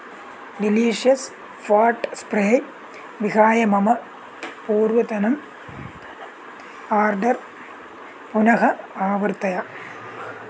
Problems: none marked